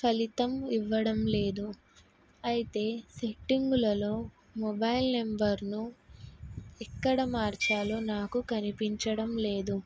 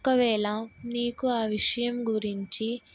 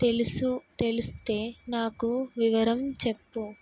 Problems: background sounds at intervals